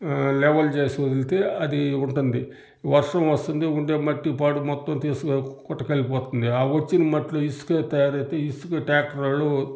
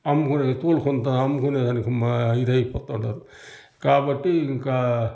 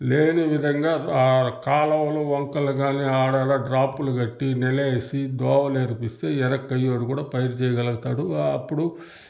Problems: none marked